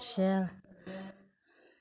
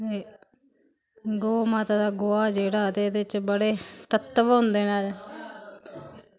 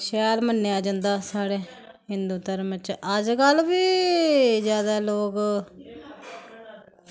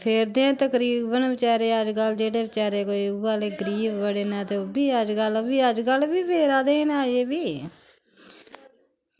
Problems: constant background noise